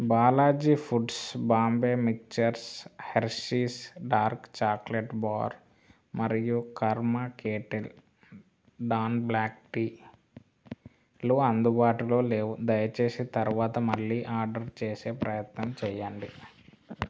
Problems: background sounds at intervals